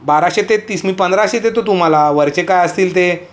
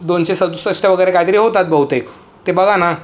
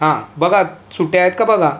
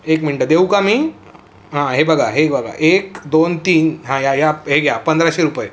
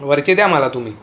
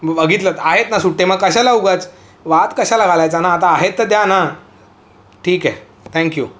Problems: none marked